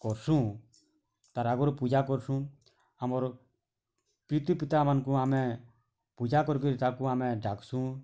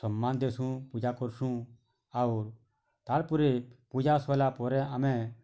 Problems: constant background noise